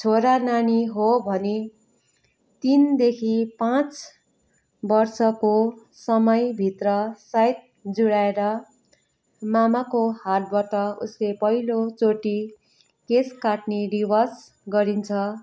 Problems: background sounds at intervals